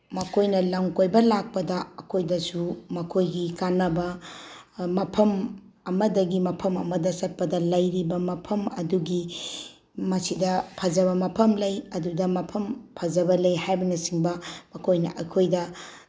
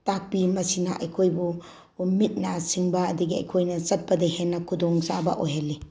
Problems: background sounds at intervals